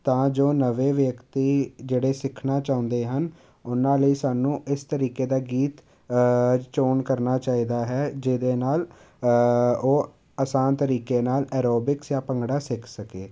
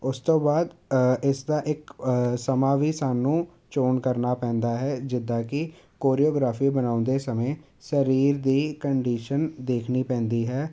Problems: none marked